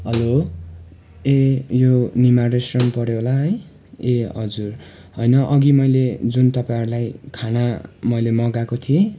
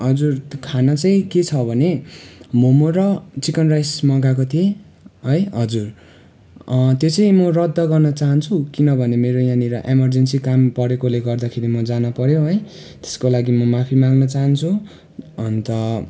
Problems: background sounds at intervals